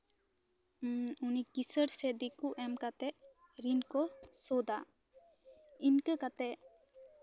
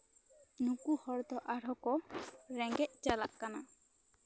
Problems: none marked